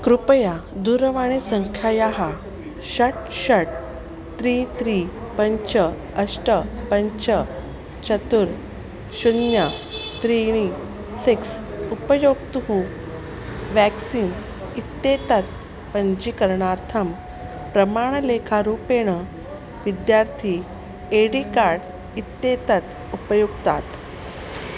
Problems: constant background noise